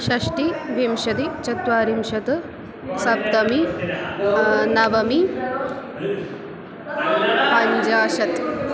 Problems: constant background noise